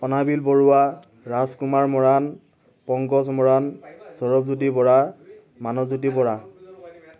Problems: none marked